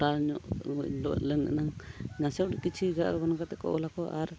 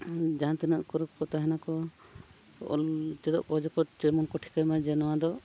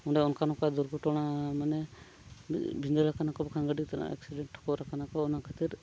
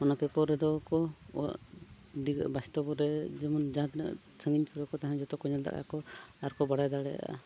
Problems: background sounds at intervals